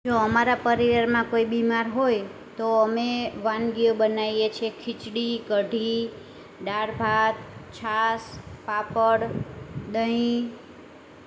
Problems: constant background noise